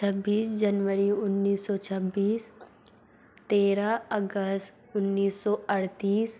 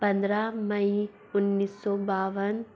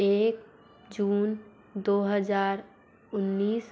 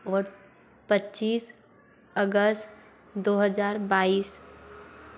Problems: constant background noise